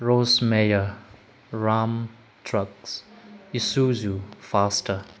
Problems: none marked